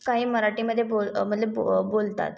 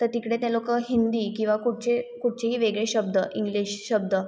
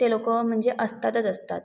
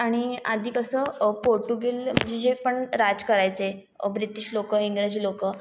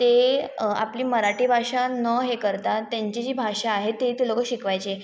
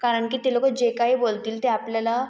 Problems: none marked